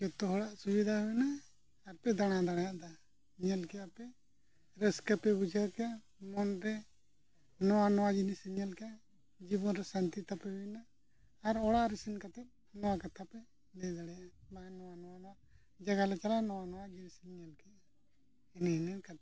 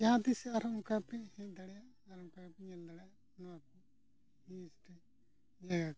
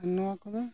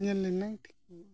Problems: background sounds at intervals, low volume